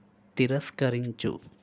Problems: constant background noise